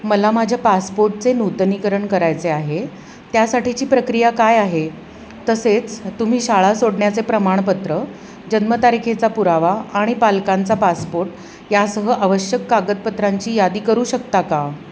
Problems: constant background noise